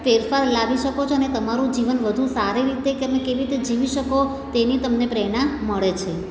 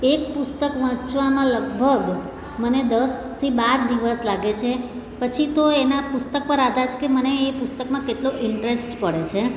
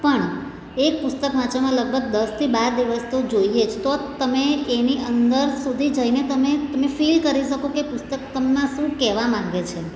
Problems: none marked